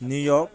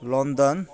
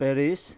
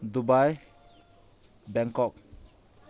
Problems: background sounds at intervals